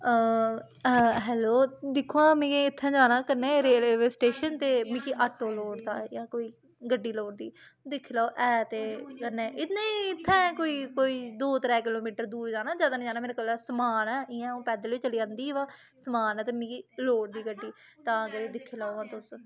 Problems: constant background noise, background conversations at intervals